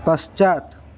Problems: constant background noise